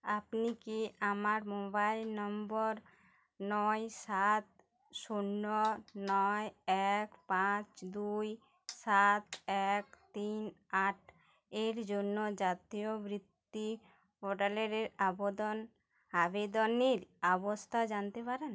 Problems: none marked